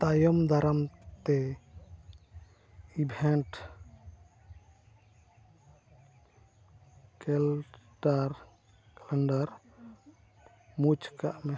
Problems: none marked